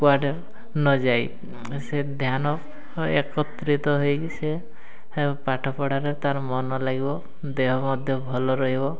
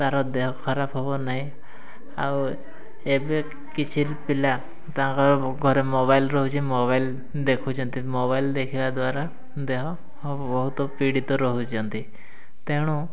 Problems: constant background noise, continuous background conversations